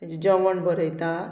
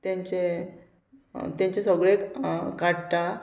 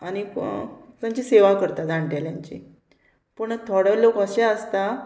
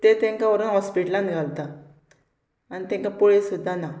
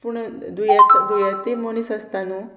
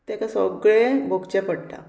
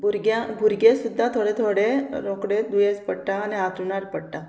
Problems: none marked